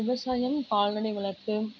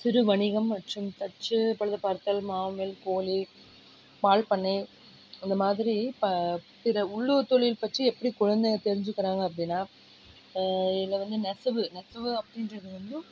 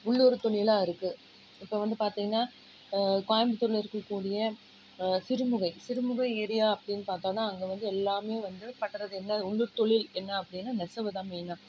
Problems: low volume